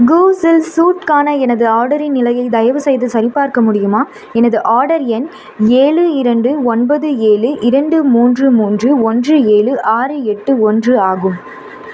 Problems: constant background noise